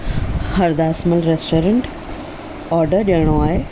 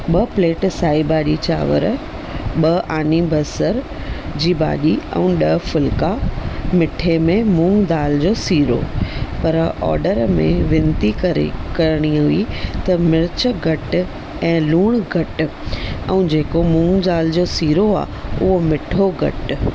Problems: none marked